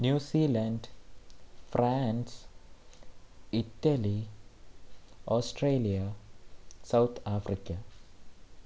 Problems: constant background noise